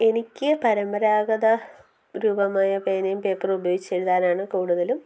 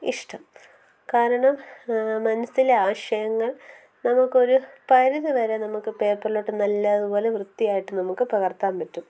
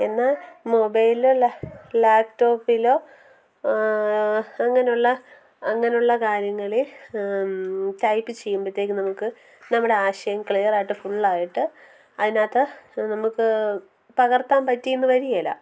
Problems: background conversations at intervals, low volume